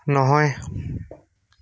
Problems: none marked